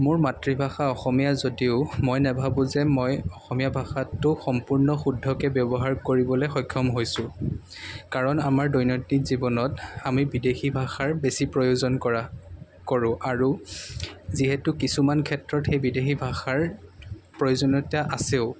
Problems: none marked